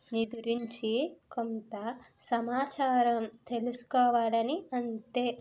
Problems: none marked